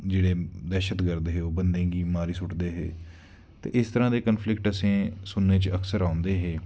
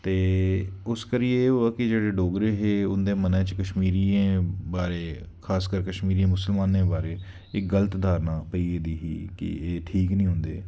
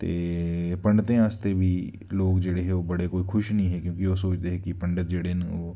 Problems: none marked